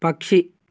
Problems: none marked